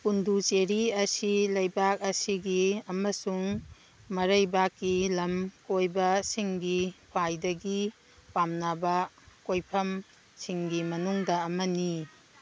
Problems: background sounds at intervals